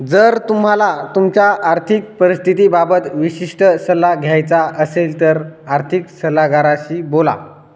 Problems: constant background noise, echo